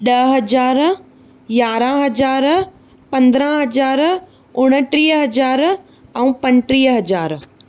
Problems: none marked